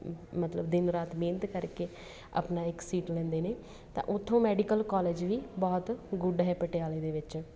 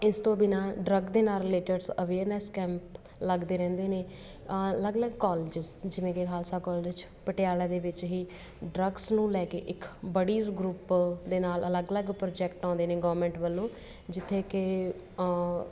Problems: constant background noise, background conversations at intervals